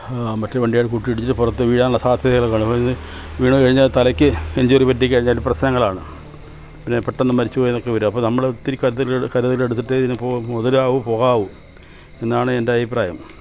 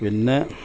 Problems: none marked